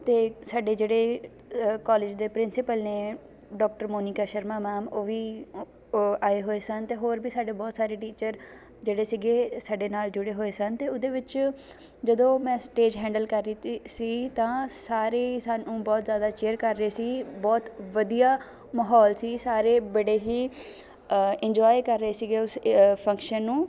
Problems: continuous background conversations